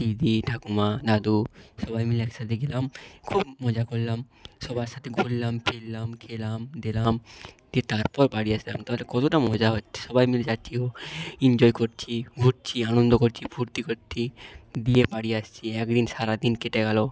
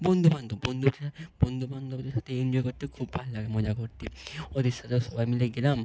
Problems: background sounds at intervals